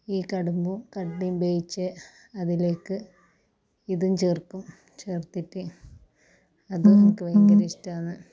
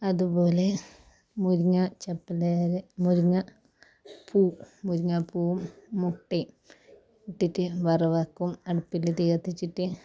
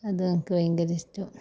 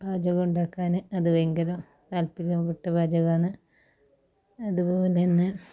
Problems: low volume